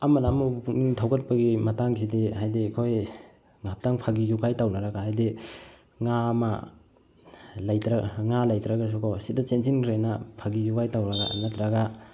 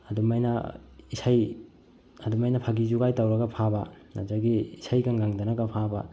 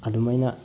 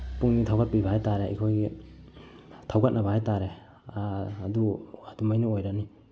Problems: low volume